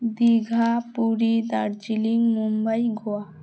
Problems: none marked